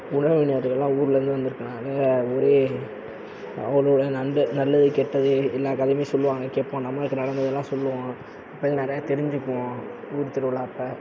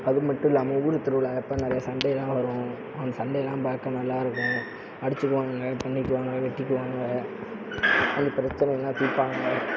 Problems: constant background noise